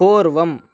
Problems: none marked